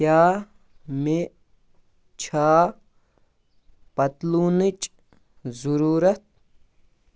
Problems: none marked